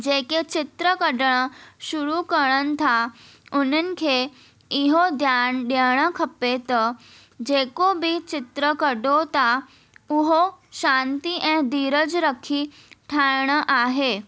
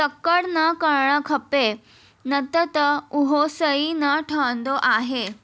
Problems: none marked